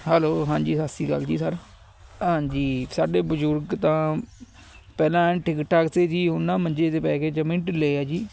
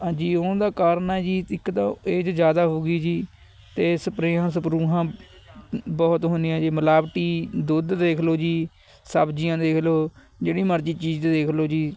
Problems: none marked